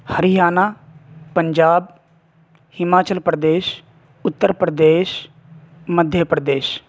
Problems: constant background noise